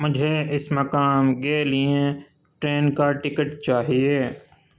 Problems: constant background noise